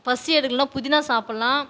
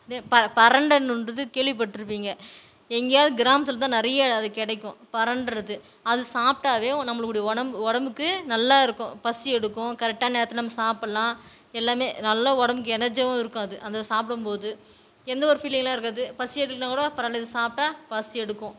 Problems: none marked